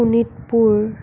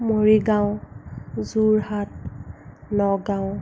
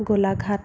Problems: none marked